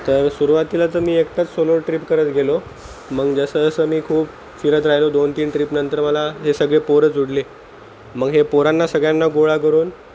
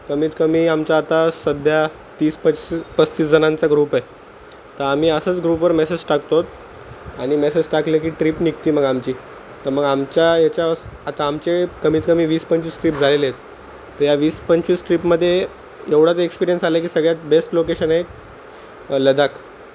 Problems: constant background noise